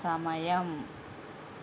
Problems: constant background noise